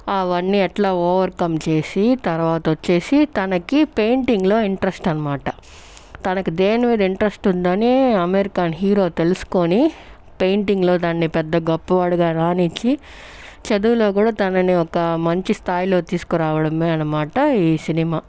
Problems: background sounds at intervals